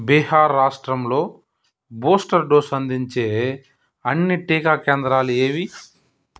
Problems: none marked